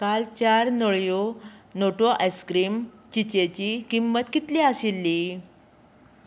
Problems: none marked